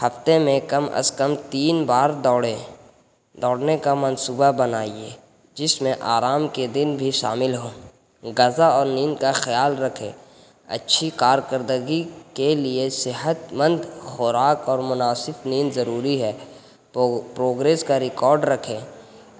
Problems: constant background noise